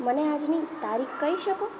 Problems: continuous background conversations